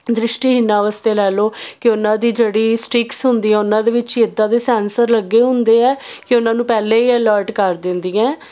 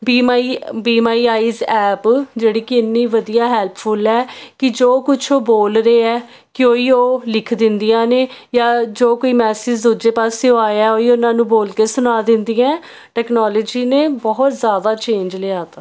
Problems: none marked